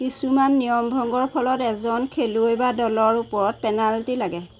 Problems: constant background noise